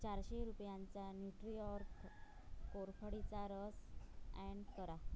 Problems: background sounds at intervals, low volume